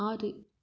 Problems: low volume